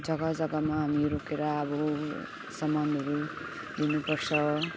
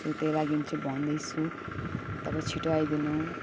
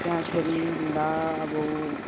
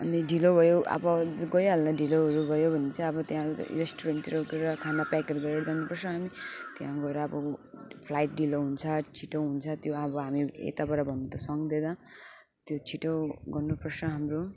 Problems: background sounds at intervals